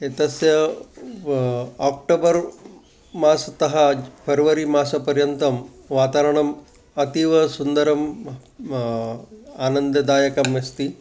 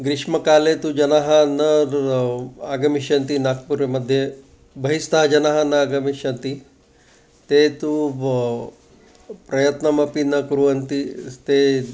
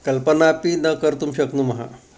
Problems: constant background noise